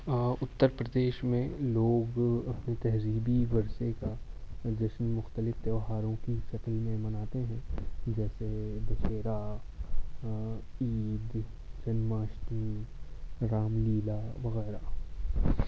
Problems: constant background noise, low volume